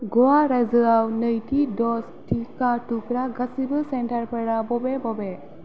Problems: none marked